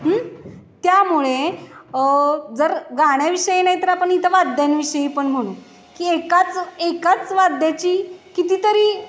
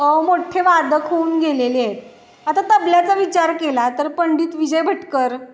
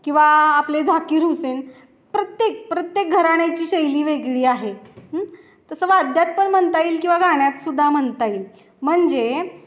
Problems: constant background noise, background conversations at intervals, echo